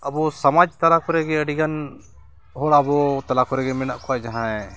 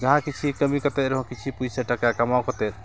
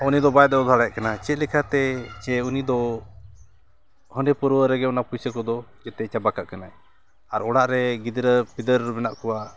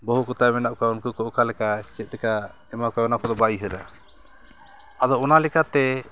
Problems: background sounds at intervals, continuous background conversations